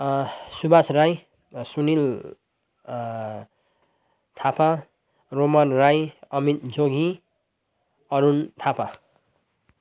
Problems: none marked